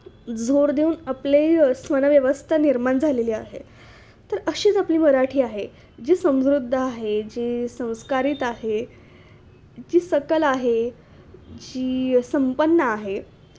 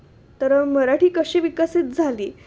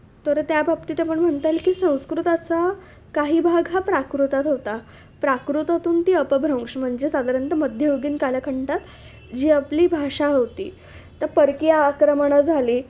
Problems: constant background noise, background conversations at intervals